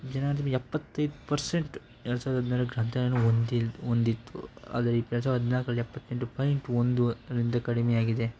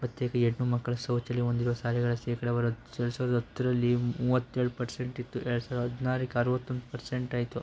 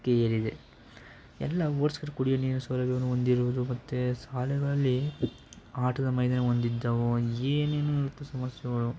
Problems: background sounds at intervals